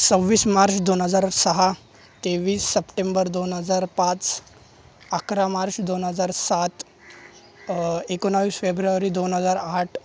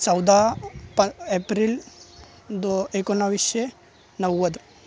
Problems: constant background noise, background conversations at intervals